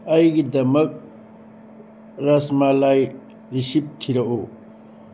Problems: constant background noise